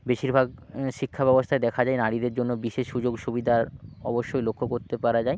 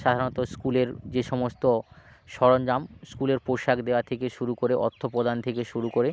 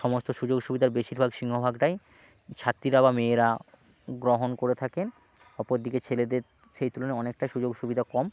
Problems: background sounds at intervals, background conversations at intervals